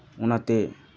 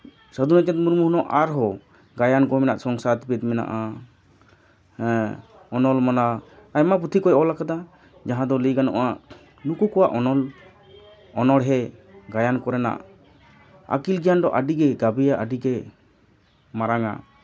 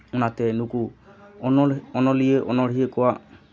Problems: background sounds at intervals